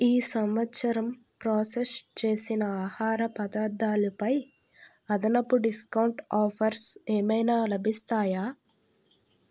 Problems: none marked